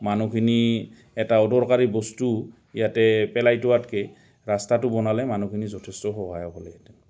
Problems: constant background noise